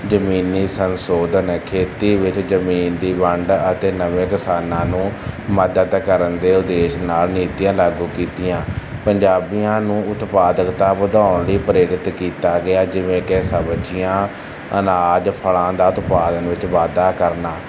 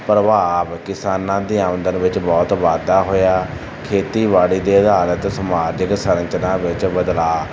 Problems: constant background noise